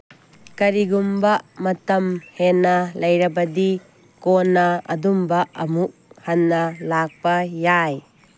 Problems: none marked